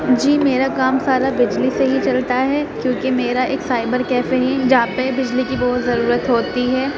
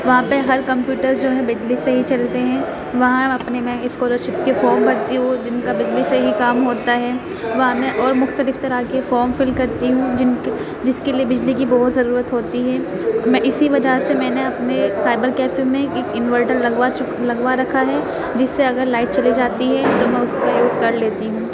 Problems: constant background noise, continuous background conversations